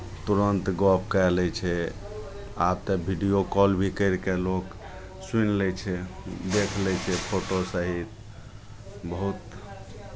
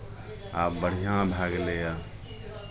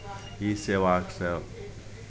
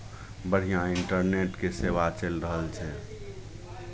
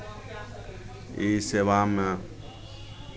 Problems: none marked